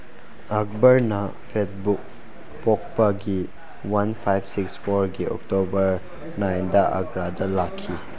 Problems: background conversations at intervals